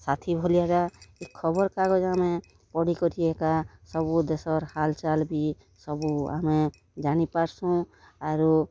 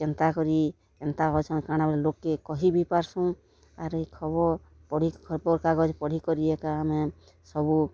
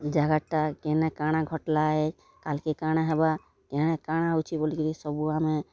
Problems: constant background noise